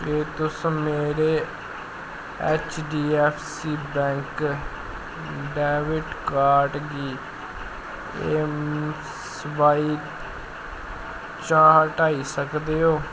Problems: constant background noise